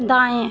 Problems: constant background noise